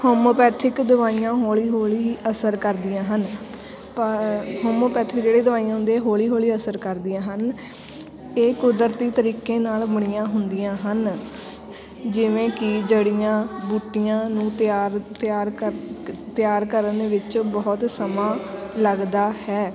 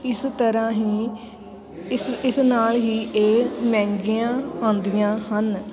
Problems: background sounds at intervals, continuous background conversations